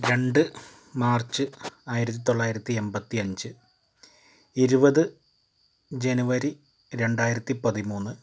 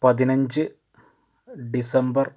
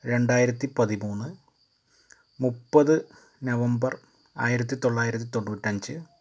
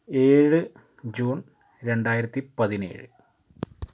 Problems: constant background noise